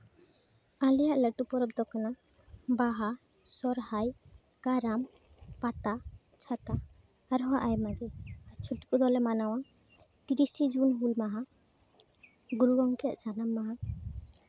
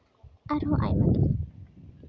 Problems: none marked